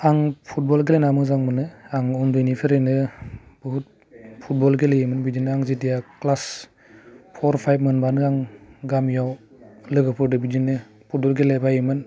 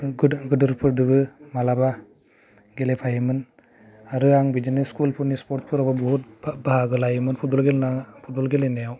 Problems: low volume